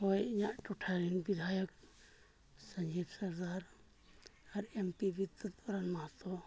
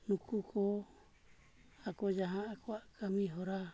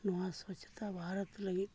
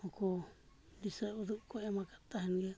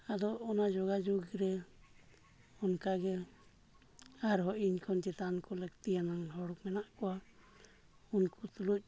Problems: low volume